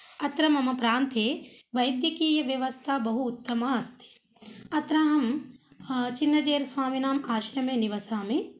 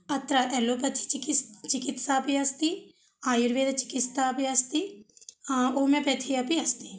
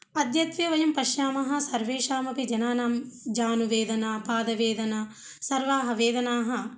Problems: none marked